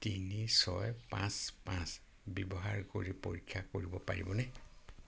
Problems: constant background noise